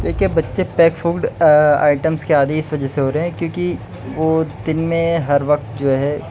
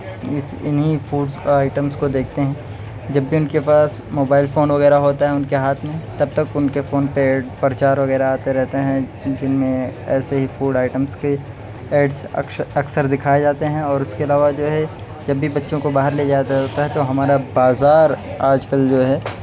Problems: none marked